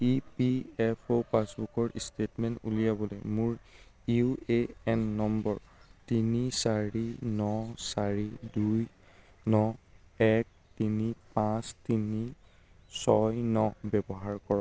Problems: none marked